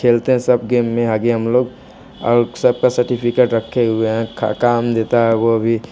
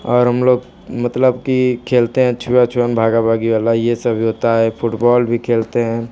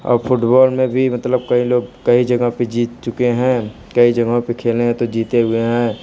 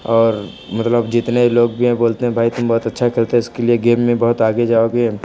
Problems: none marked